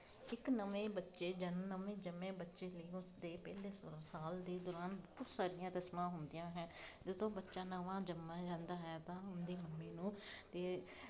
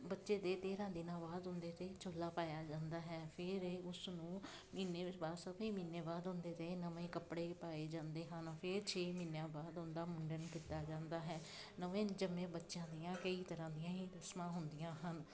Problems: constant background noise